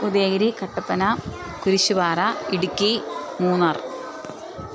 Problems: constant background noise